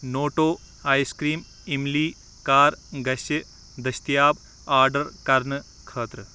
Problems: none marked